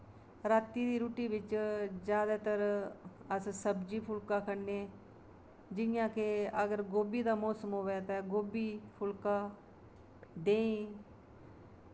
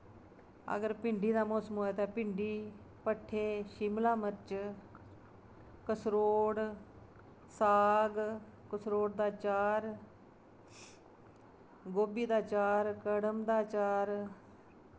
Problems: constant background noise